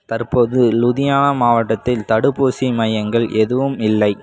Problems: none marked